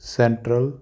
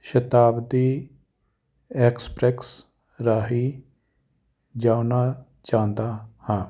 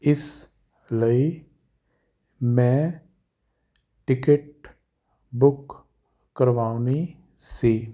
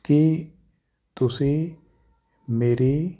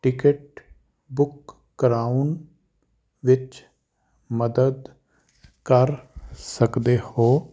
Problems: none marked